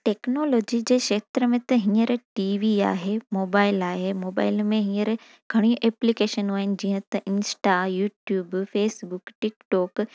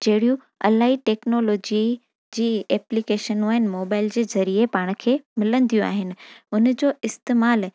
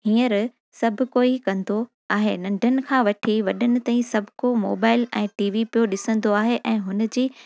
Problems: none marked